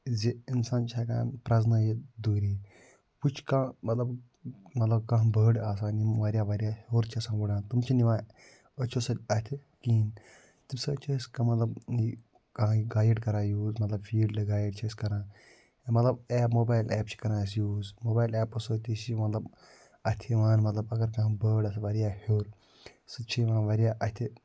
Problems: low volume